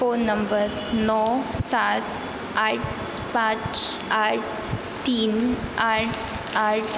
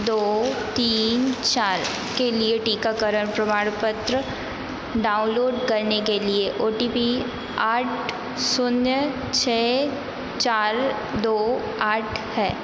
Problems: constant background noise, echo